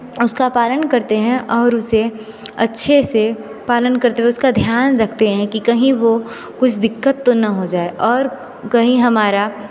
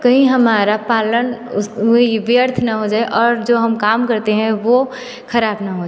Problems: constant background noise, continuous background conversations, echo